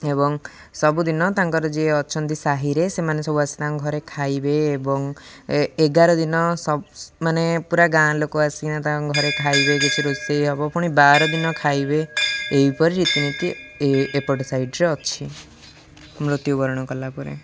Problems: background sounds at intervals